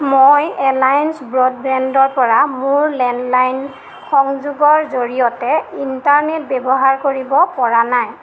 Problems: constant background noise